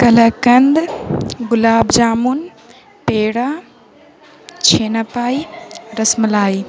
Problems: constant background noise